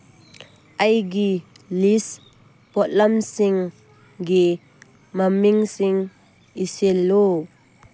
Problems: background sounds at intervals